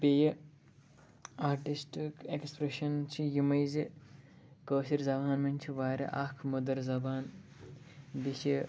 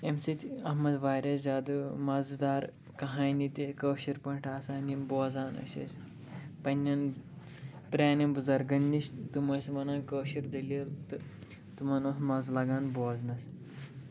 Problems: background sounds at intervals